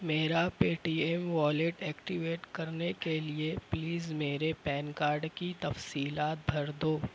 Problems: constant background noise